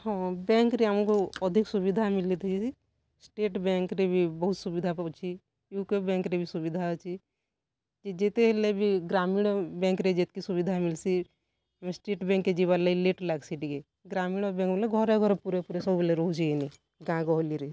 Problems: none marked